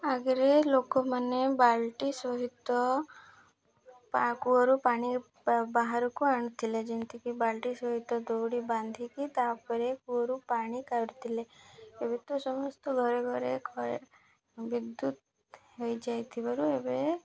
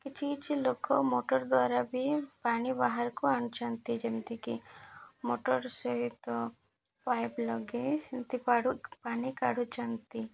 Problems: none marked